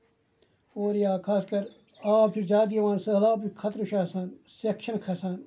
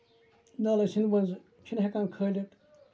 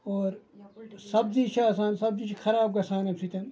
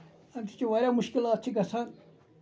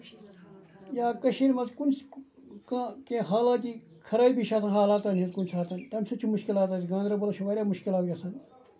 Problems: background sounds at intervals, low volume